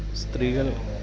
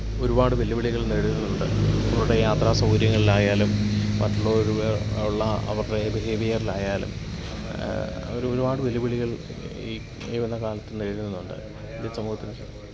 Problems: background sounds at intervals, background conversations at intervals